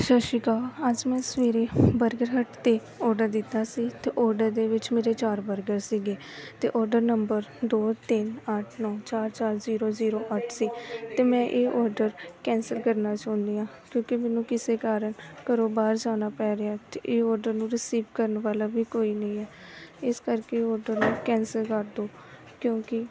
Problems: continuous background conversations